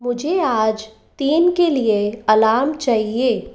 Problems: none marked